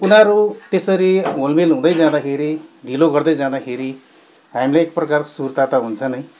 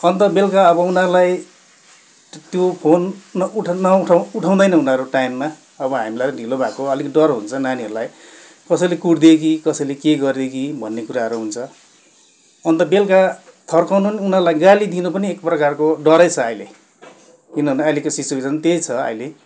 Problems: background sounds at intervals